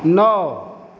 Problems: constant background noise, echo